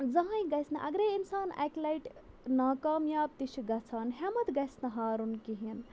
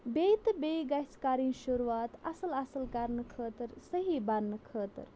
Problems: low volume